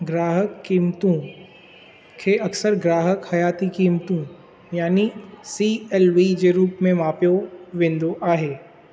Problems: constant background noise